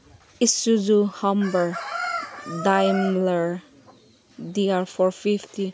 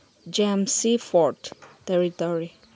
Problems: background sounds at intervals